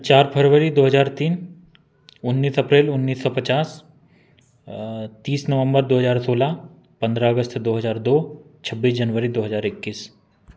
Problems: constant background noise